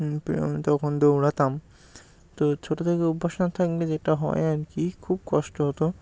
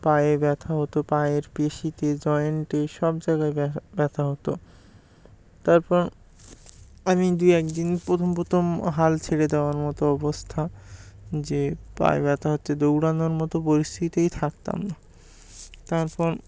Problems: background sounds at intervals